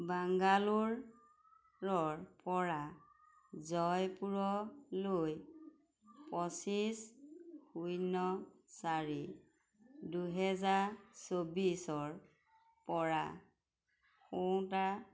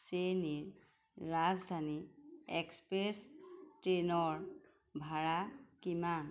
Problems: background conversations at intervals